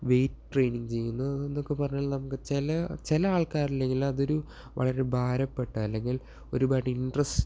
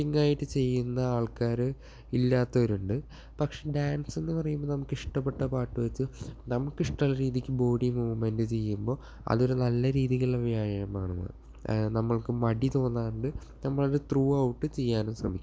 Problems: none marked